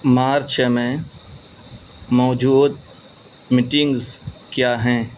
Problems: constant background noise